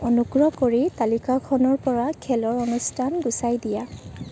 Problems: background sounds at intervals